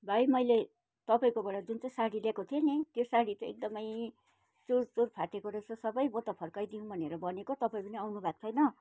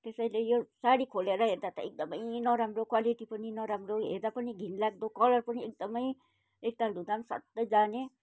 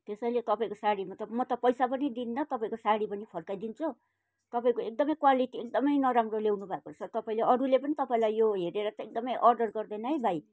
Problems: background sounds at intervals